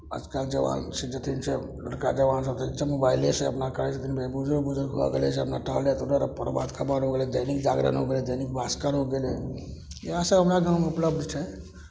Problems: none marked